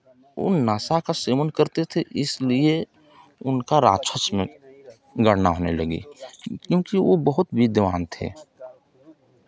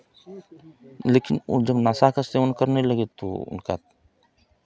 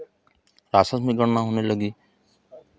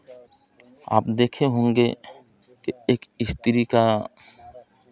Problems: constant background noise